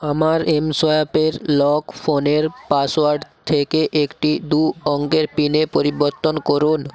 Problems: constant background noise, continuous background conversations